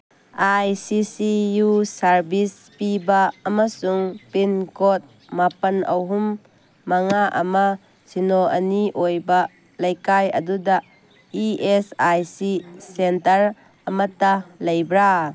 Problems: background sounds at intervals